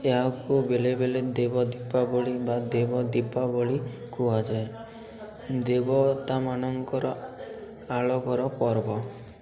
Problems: constant background noise, continuous background conversations